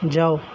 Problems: constant background noise